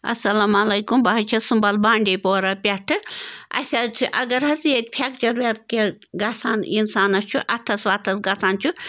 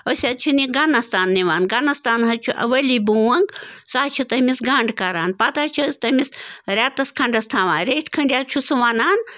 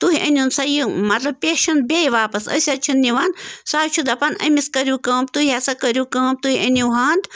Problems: constant background noise